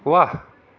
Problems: none marked